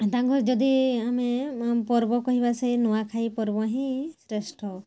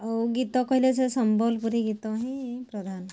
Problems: none marked